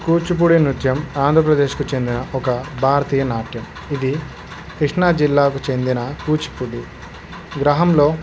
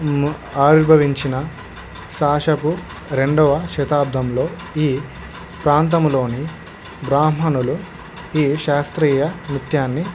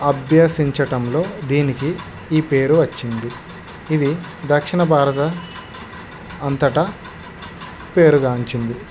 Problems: constant background noise